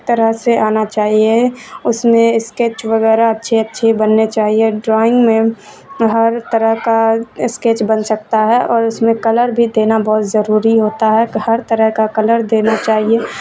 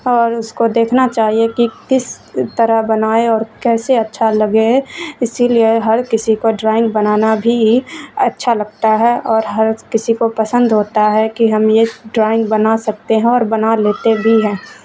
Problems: constant background noise, low volume